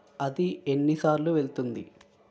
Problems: continuous background conversations